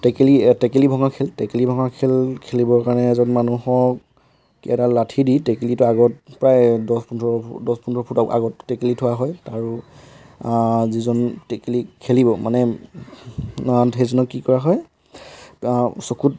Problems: background sounds at intervals